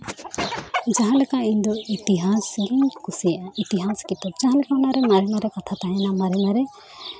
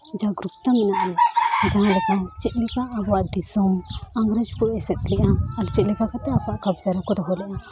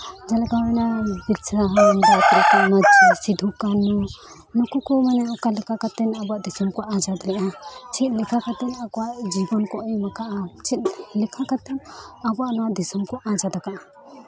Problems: background sounds at intervals, continuous background conversations